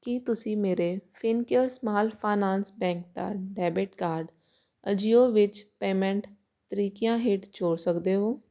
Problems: constant background noise